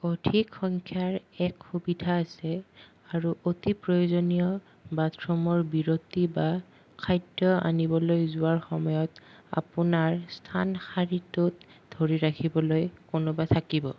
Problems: none marked